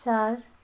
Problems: background sounds at intervals